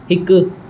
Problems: constant background noise, echo